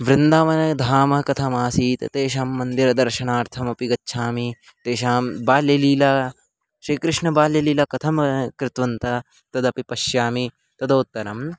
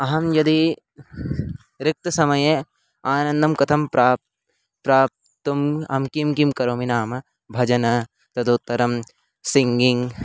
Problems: background sounds at intervals